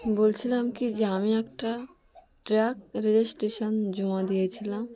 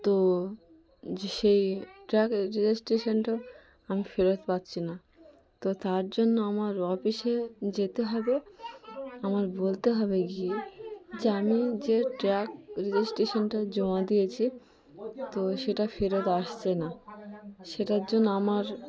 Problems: continuous background conversations